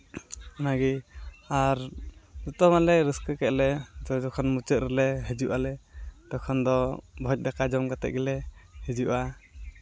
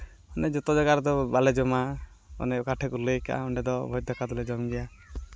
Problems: constant background noise, background conversations at intervals